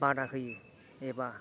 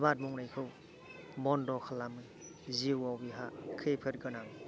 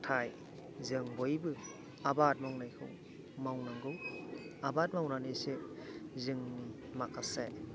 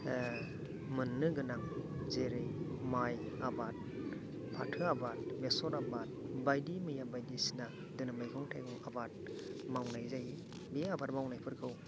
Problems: background sounds at intervals, continuous background conversations